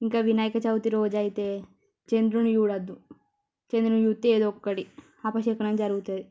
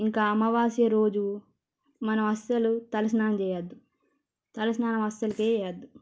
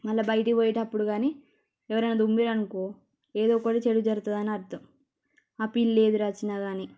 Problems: low volume